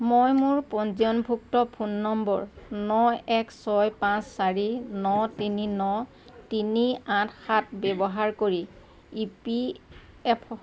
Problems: constant background noise